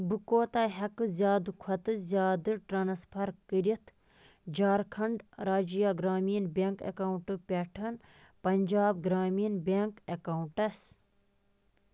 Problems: constant background noise